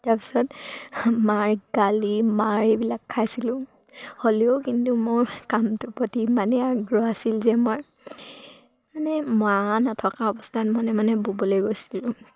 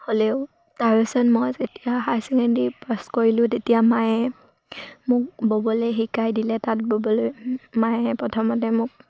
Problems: none marked